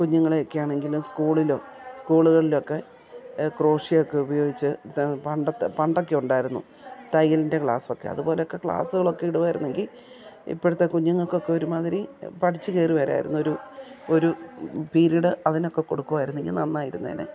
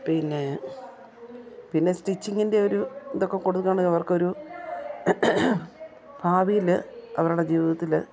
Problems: background sounds at intervals, background conversations at intervals